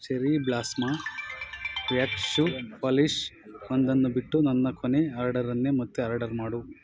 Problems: background sounds at intervals